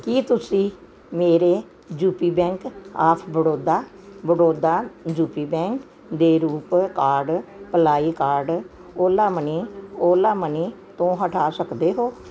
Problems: background sounds at intervals